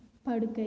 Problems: none marked